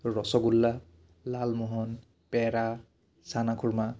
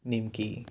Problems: low volume